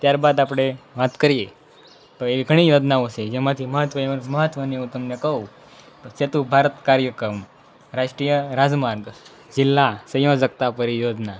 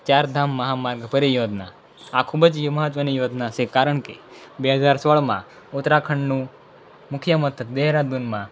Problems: background conversations at intervals